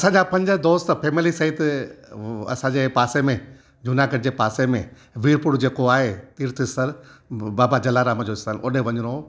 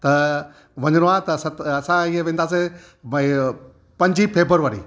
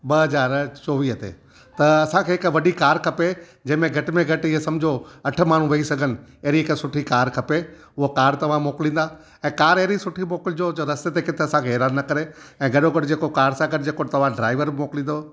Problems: none marked